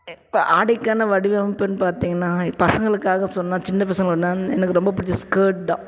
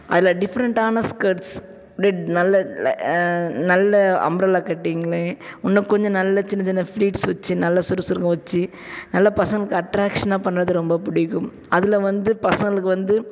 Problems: background sounds at intervals